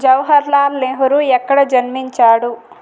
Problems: constant background noise